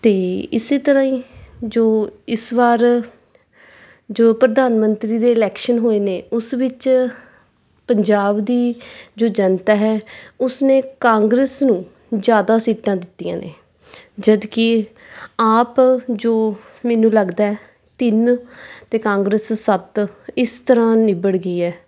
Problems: background sounds at intervals